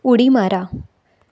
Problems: none marked